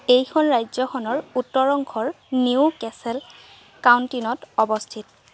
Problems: constant background noise